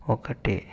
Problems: constant background noise